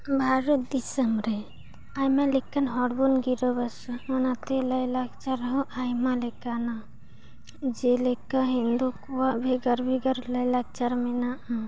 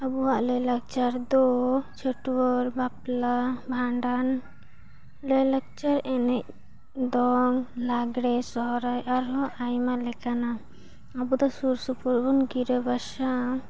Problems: background sounds at intervals, background conversations at intervals